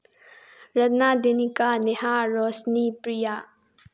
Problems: low volume